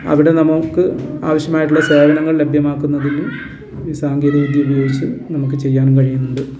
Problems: constant background noise